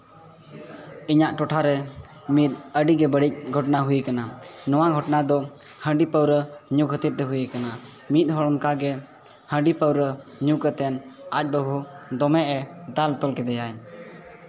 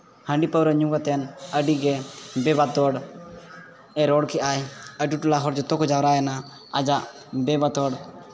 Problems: continuous background conversations